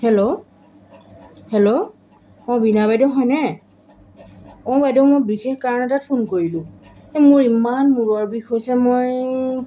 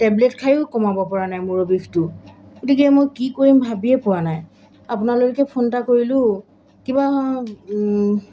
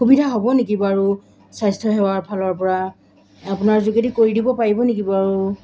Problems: none marked